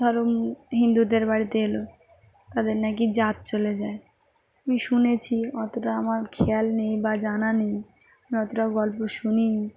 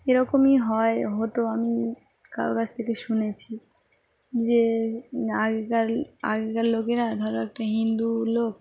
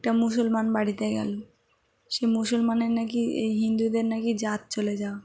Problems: none marked